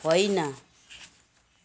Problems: none marked